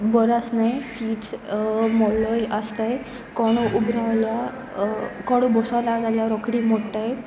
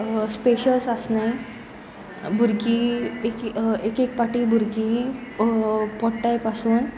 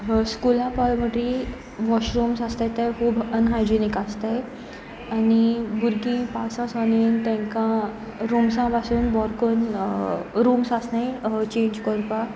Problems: none marked